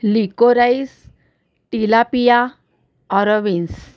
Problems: constant background noise